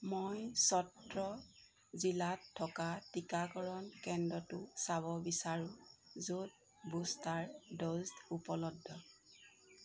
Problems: background sounds at intervals